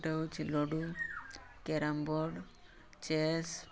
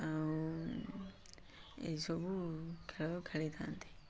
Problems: background sounds at intervals